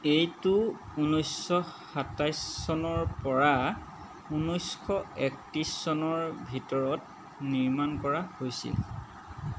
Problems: constant background noise